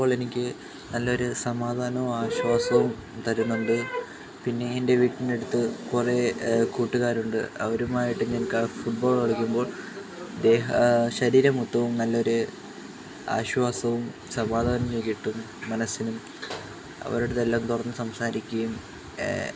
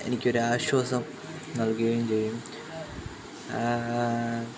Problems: constant background noise